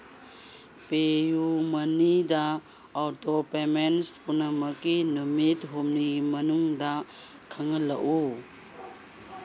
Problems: none marked